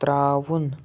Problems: none marked